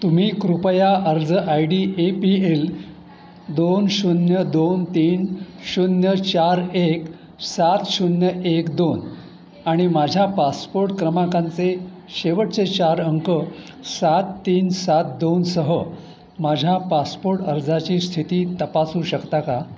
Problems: background sounds at intervals